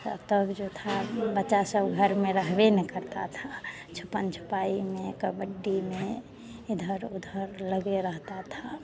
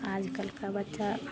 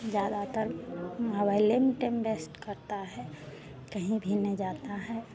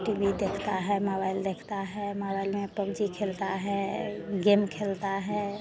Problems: constant background noise